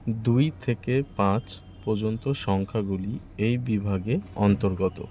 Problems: constant background noise